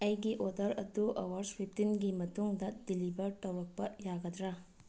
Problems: low volume